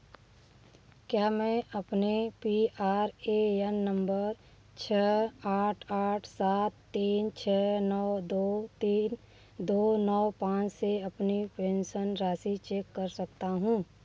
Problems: background sounds at intervals